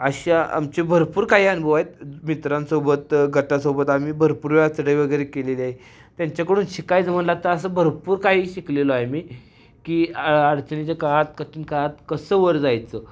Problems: none marked